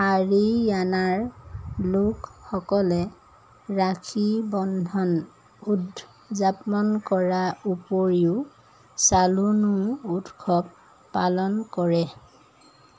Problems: none marked